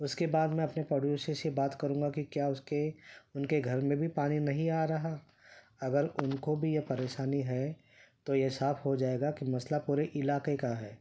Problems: none marked